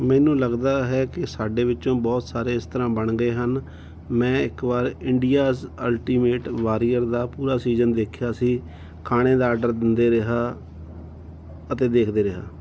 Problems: none marked